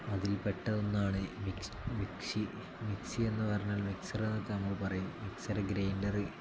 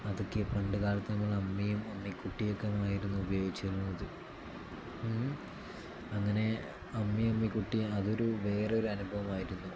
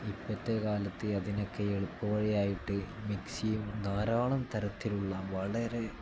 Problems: none marked